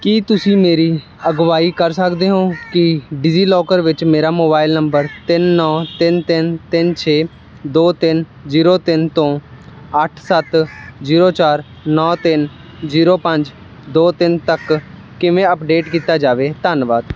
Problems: constant background noise